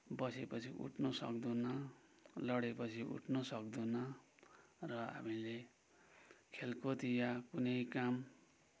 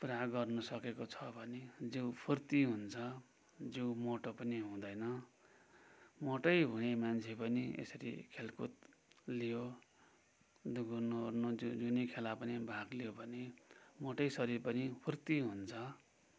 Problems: background sounds at intervals